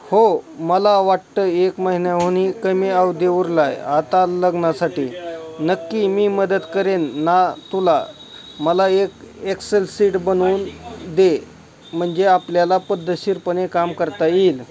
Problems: continuous background conversations